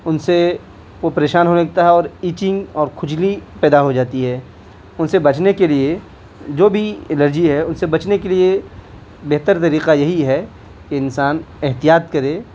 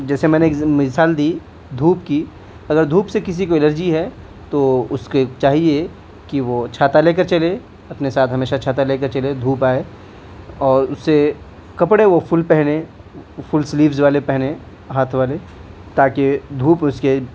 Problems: constant background noise